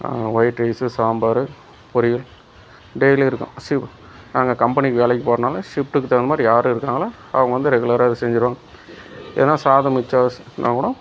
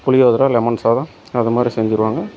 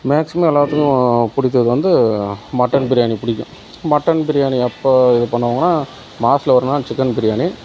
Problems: background sounds at intervals